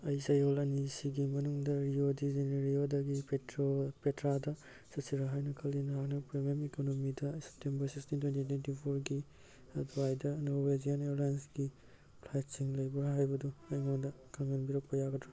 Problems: background sounds at intervals